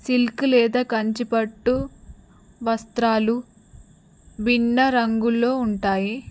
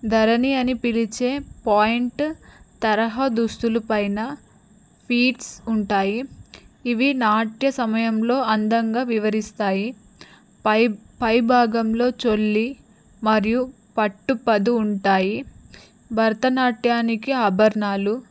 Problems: background sounds at intervals